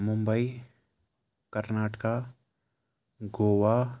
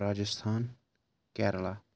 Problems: background sounds at intervals